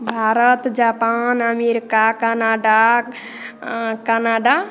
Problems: none marked